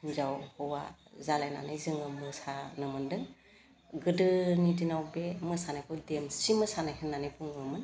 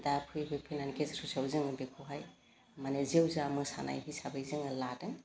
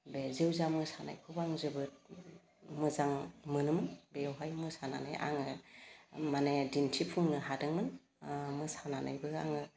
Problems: constant background noise